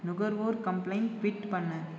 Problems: background sounds at intervals